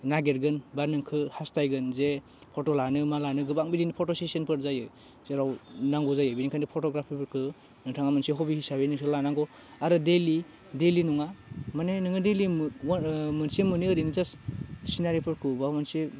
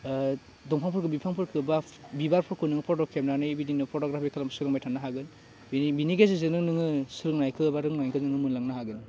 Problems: none marked